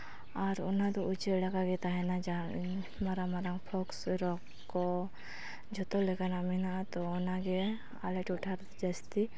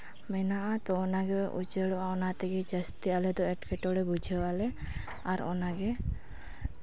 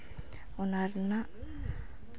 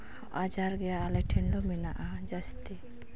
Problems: background conversations at intervals